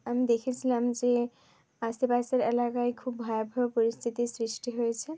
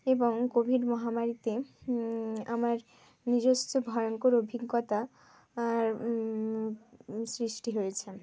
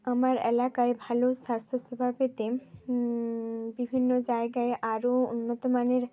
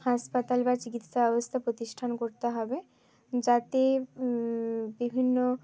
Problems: constant background noise, background conversations at intervals